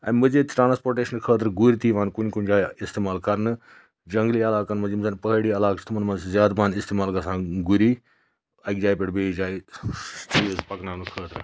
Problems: background sounds at intervals